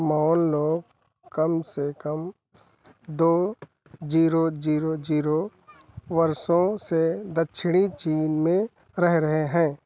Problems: background sounds at intervals